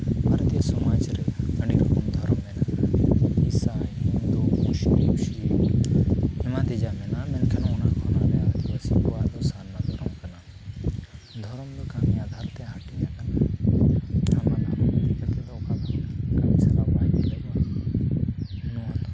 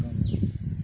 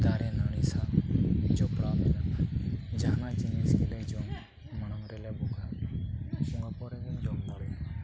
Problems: constant background noise, low volume